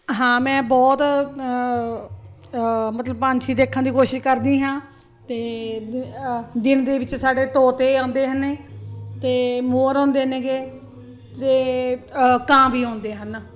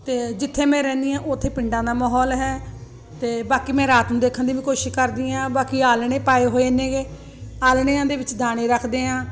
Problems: constant background noise